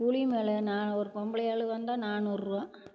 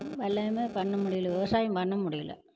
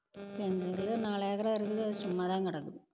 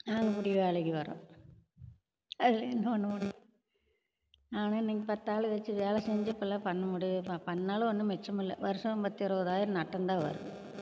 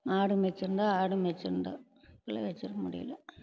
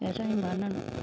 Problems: background sounds at intervals